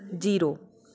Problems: background conversations at intervals